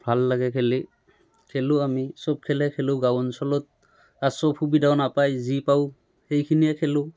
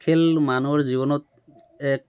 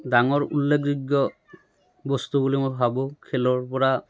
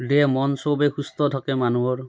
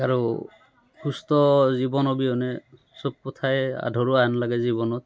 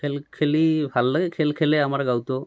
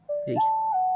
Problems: background sounds at intervals, background conversations at intervals